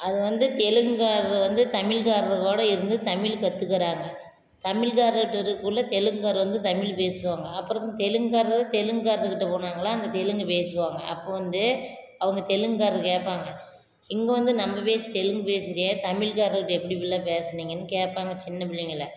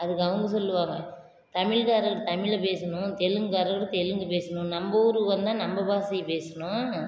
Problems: constant background noise